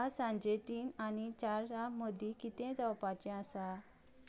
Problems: none marked